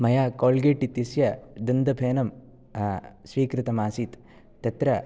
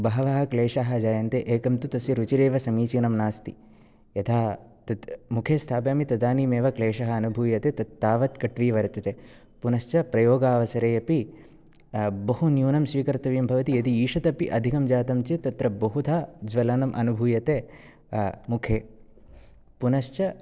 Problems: none marked